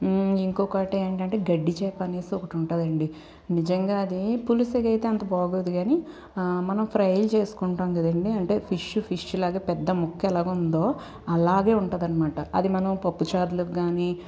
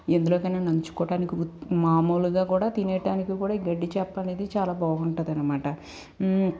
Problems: constant background noise